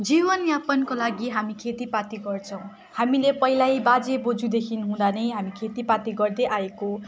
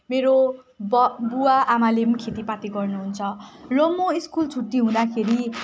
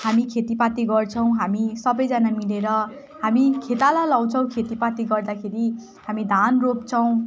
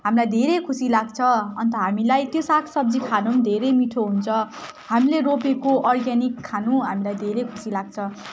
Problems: none marked